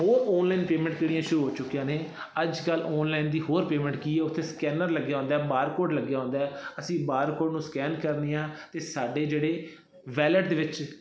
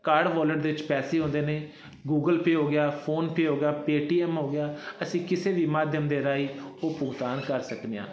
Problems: constant background noise